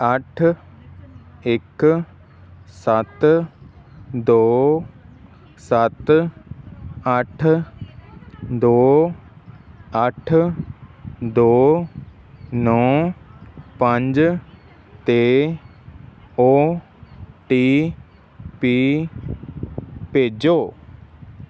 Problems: constant background noise, background conversations at intervals